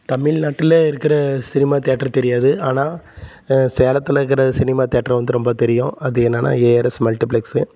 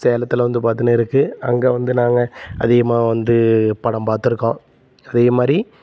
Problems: constant background noise